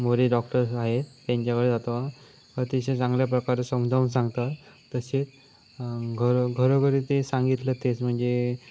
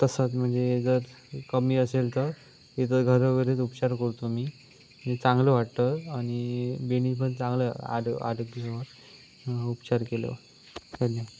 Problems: constant background noise